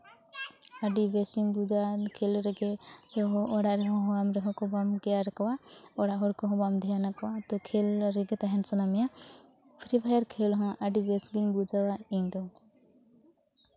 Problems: none marked